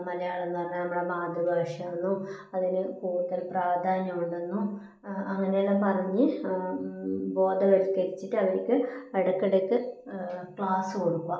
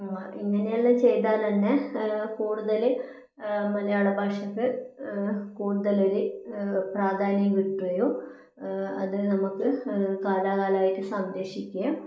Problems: low volume